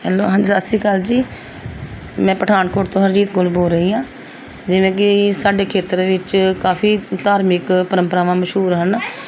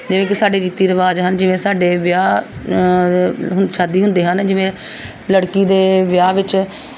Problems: background sounds at intervals, background conversations at intervals